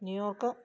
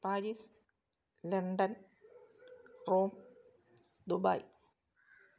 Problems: low volume